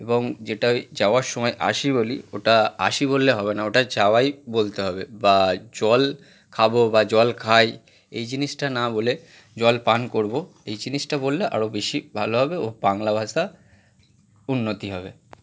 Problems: none marked